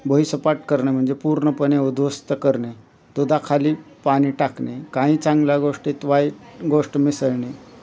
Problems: none marked